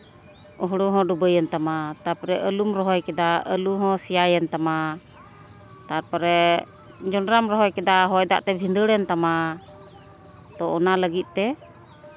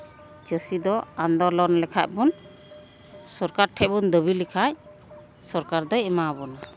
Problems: none marked